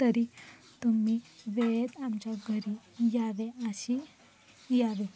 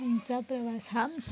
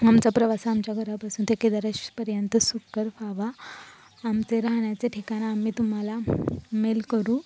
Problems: background sounds at intervals, background conversations at intervals